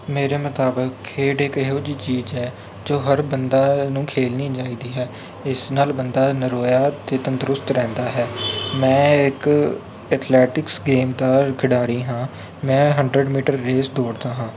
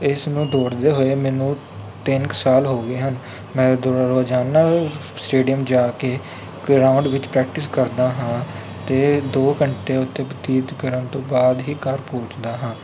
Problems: constant background noise